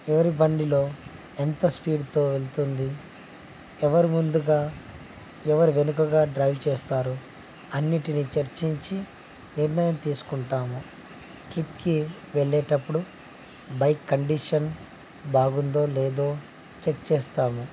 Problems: constant background noise, low volume